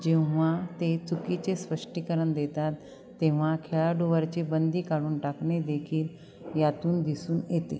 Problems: none marked